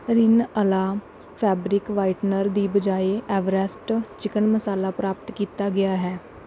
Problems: none marked